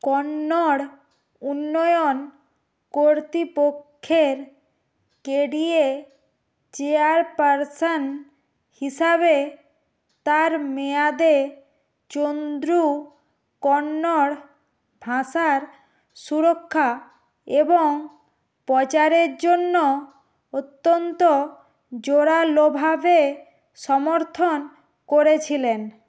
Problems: none marked